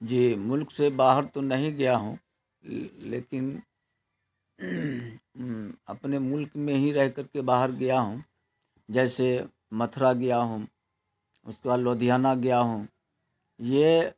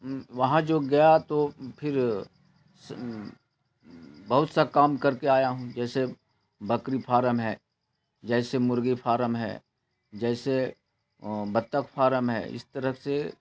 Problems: constant background noise